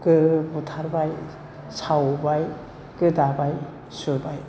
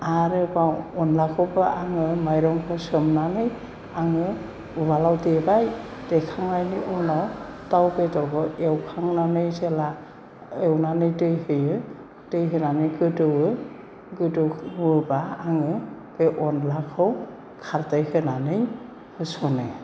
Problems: none marked